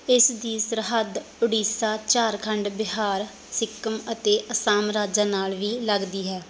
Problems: background sounds at intervals